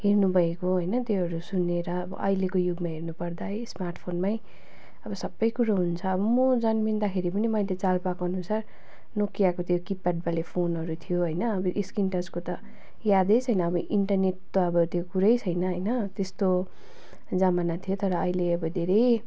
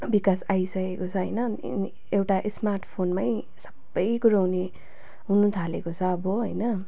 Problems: constant background noise, continuous background conversations